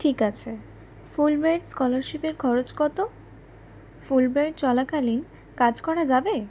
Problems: constant background noise